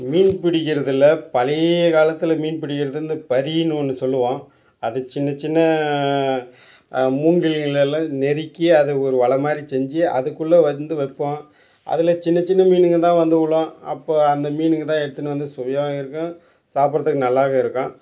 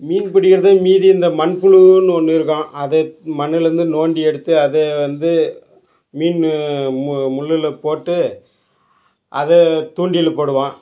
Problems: none marked